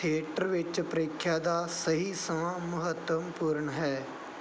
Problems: background sounds at intervals